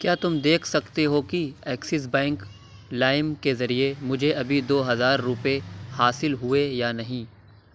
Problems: none marked